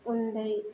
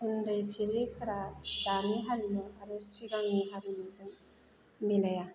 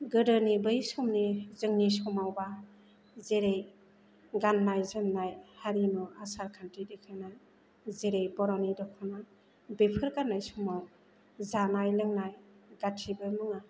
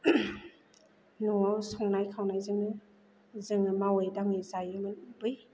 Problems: none marked